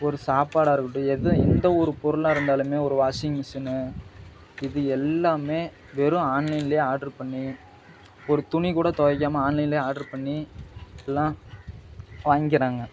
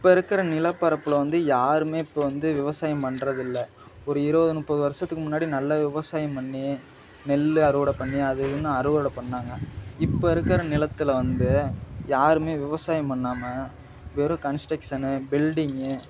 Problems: none marked